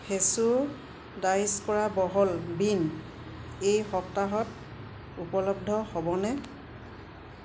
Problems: none marked